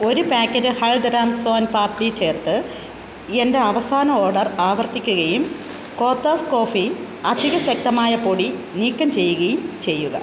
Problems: constant background noise